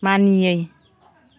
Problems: background conversations at intervals